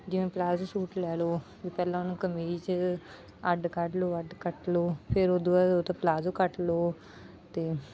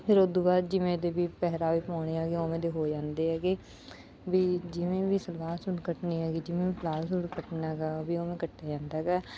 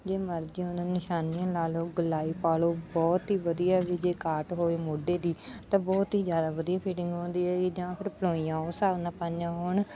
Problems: background sounds at intervals